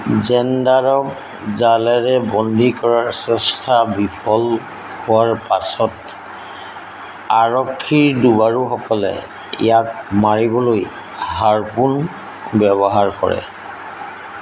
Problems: constant background noise